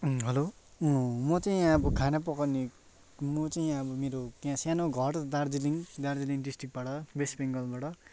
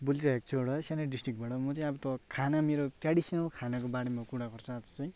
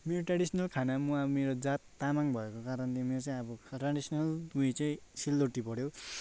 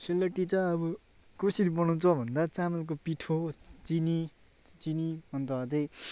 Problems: constant background noise